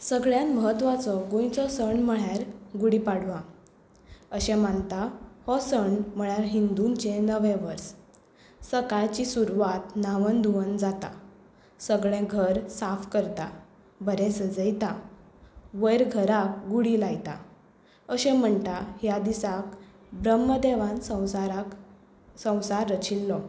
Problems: none marked